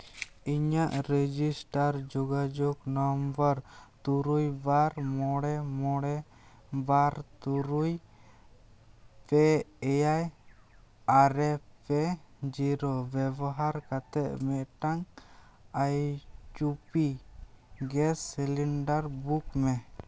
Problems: background sounds at intervals